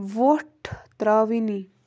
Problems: constant background noise